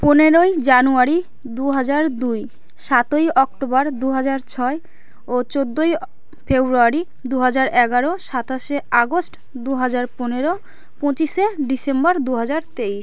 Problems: constant background noise